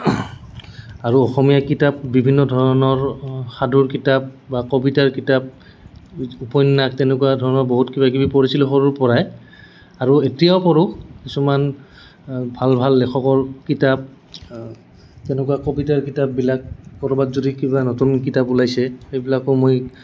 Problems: none marked